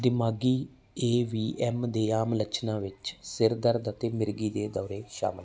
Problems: none marked